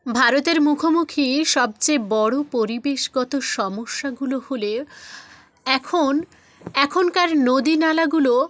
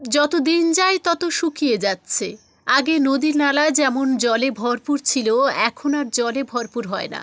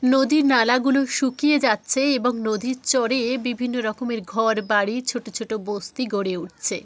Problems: none marked